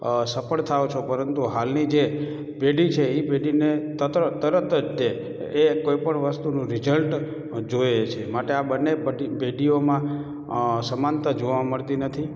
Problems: background sounds at intervals, echo